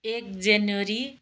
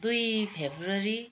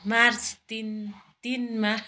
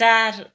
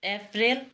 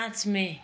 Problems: background conversations at intervals